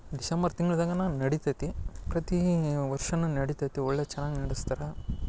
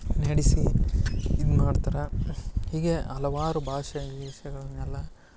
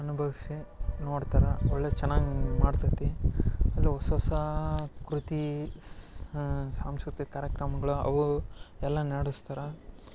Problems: background sounds at intervals